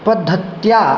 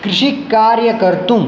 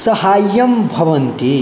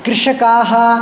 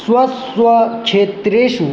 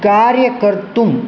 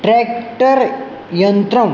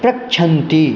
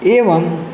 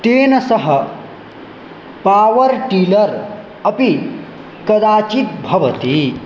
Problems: none marked